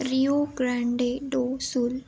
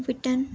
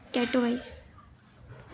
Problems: constant background noise